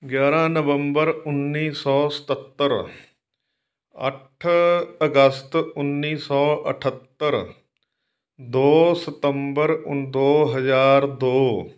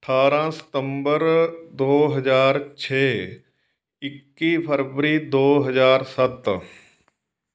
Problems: none marked